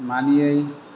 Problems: constant background noise